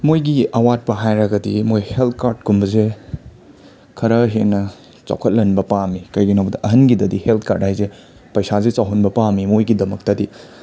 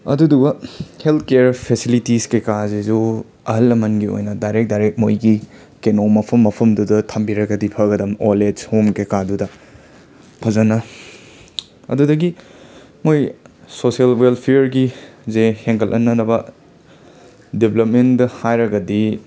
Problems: constant background noise